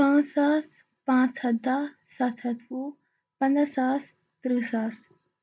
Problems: none marked